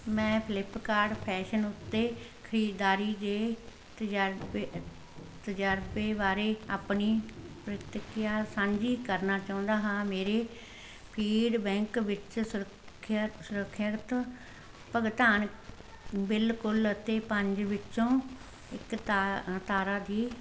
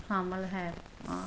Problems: constant background noise